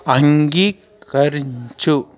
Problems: continuous background conversations